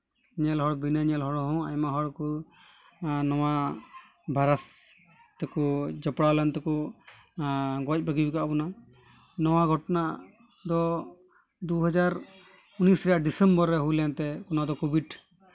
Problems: none marked